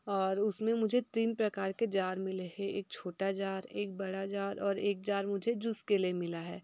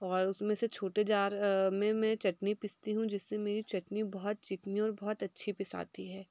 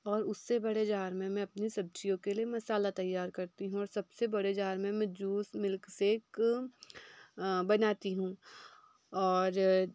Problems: background sounds at intervals